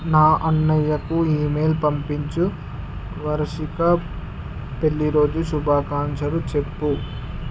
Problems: constant background noise